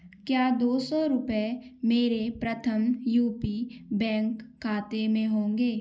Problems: background sounds at intervals